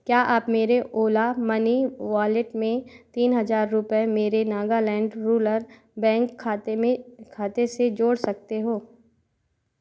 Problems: none marked